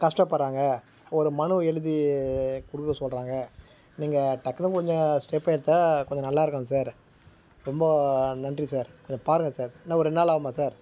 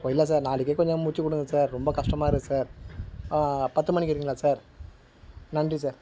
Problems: background sounds at intervals